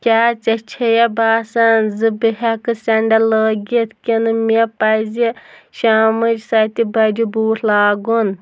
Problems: background sounds at intervals